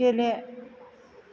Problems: none marked